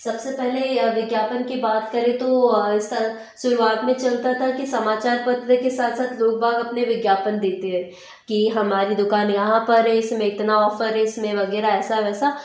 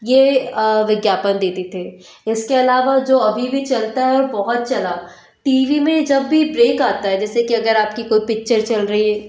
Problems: none marked